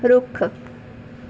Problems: none marked